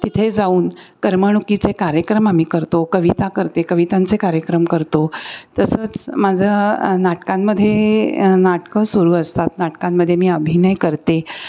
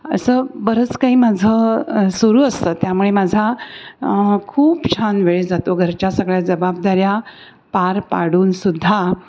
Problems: constant background noise